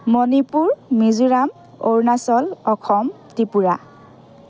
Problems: none marked